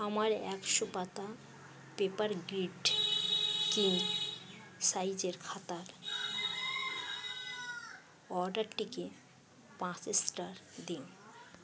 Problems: constant background noise